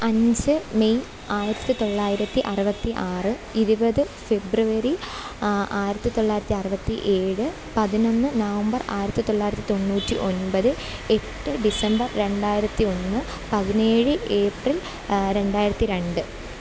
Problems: constant background noise